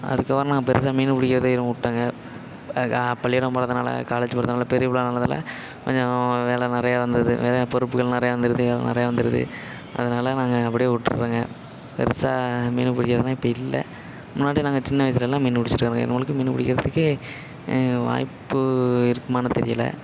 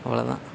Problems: constant background noise, echo